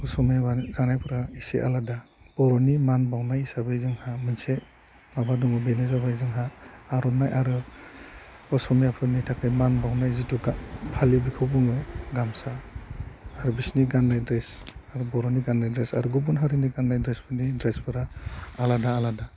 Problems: none marked